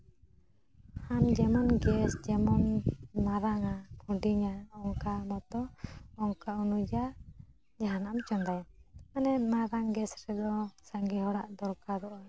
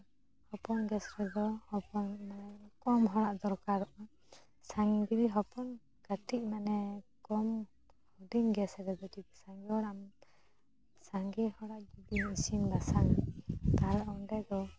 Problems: background sounds at intervals, low volume